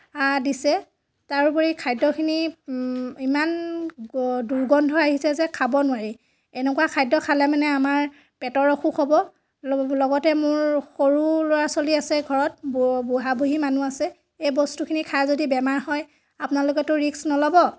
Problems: constant background noise